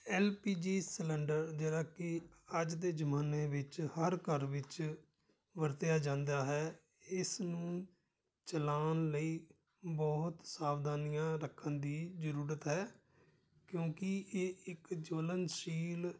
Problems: background sounds at intervals